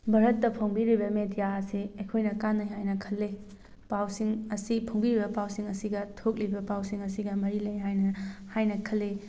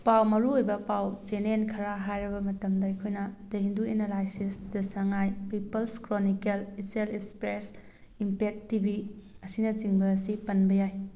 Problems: none marked